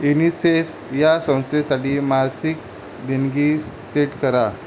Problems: constant background noise